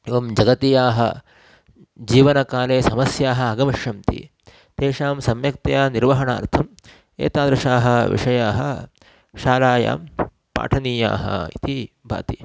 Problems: constant background noise